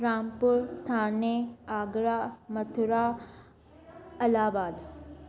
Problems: constant background noise